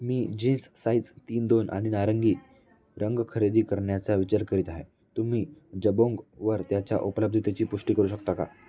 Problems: background conversations at intervals